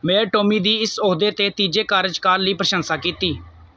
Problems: background sounds at intervals